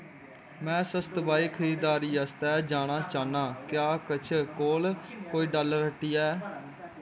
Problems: constant background noise